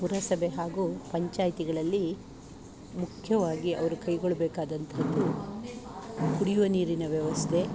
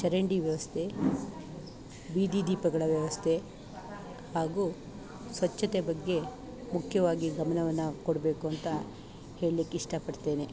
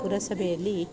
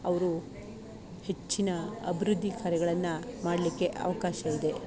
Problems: none marked